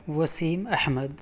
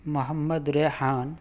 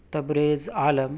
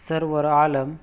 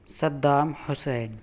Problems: none marked